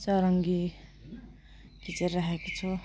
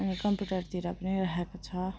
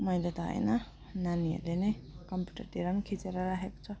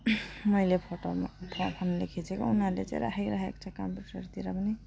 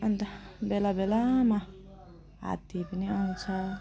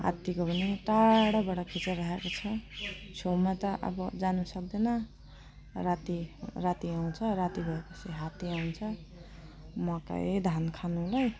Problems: none marked